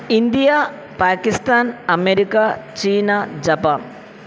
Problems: constant background noise